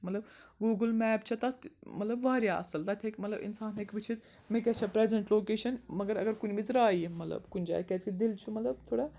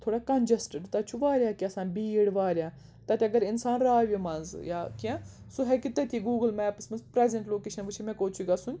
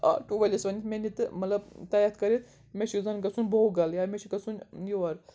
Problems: background sounds at intervals